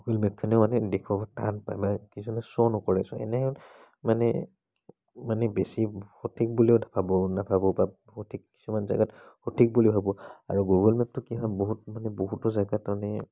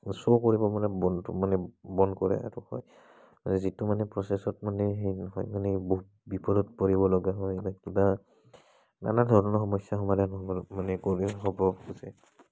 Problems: background conversations at intervals